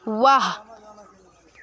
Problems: constant background noise